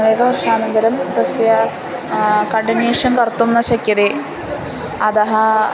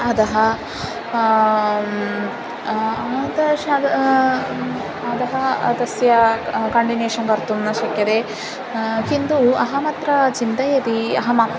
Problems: constant background noise